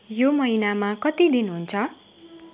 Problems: constant background noise